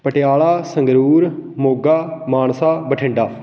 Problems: constant background noise